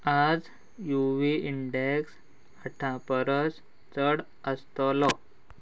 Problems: constant background noise